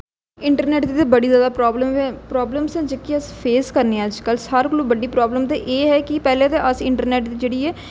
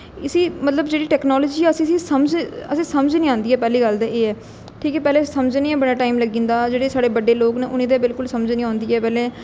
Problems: echo